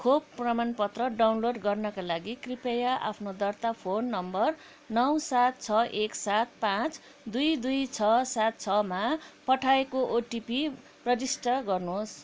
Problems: background sounds at intervals